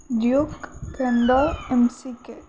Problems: constant background noise